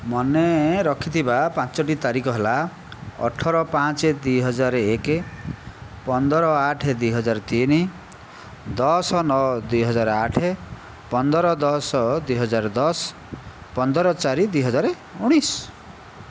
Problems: none marked